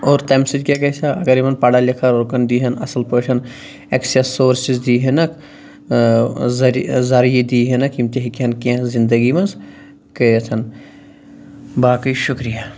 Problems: none marked